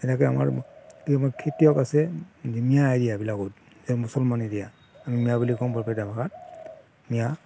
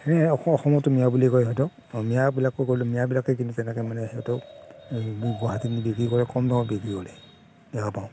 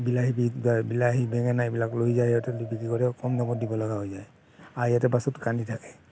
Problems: constant background noise, background conversations at intervals